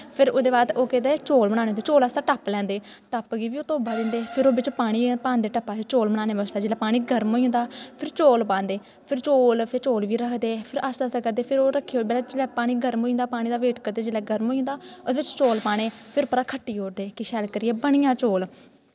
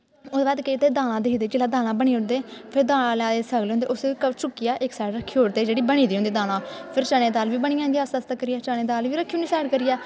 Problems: constant background noise